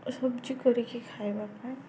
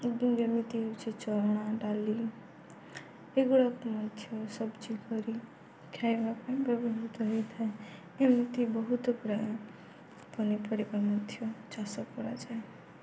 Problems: none marked